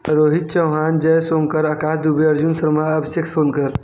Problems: background sounds at intervals